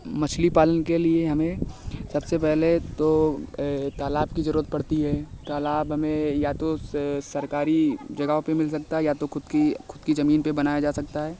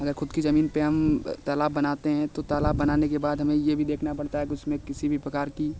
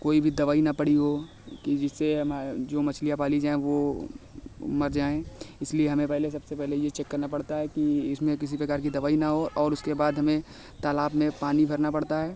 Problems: constant background noise